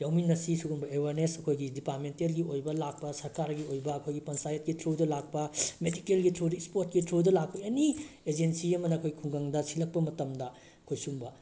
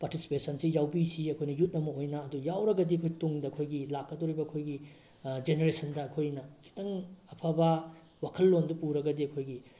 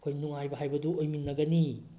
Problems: background sounds at intervals